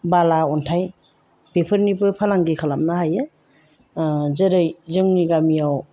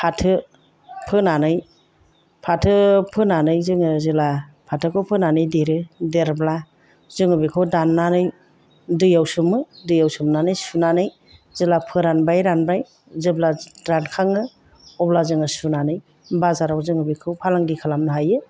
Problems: none marked